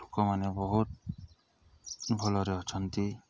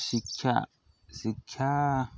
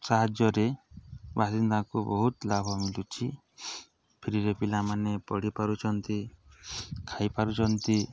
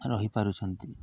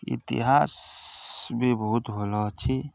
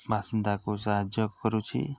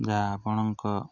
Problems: none marked